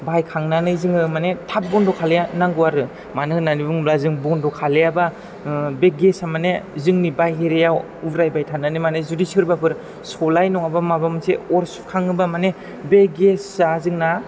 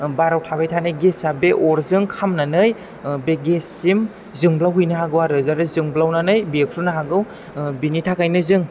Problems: background sounds at intervals